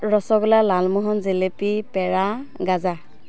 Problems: constant background noise